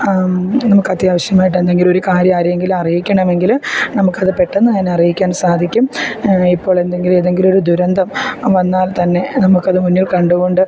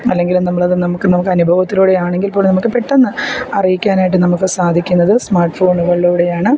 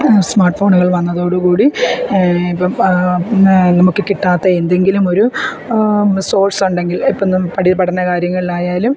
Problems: background sounds at intervals